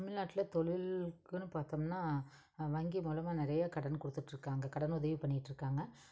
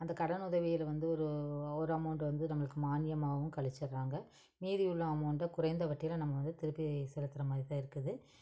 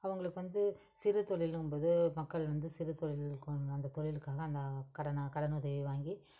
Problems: none marked